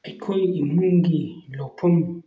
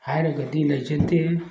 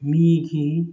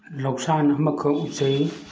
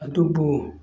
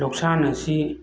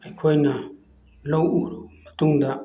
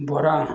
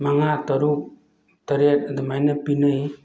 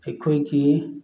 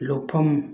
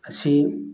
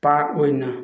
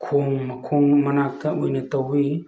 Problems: none marked